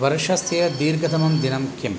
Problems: background sounds at intervals